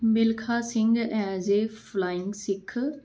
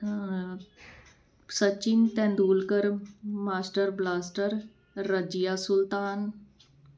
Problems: background sounds at intervals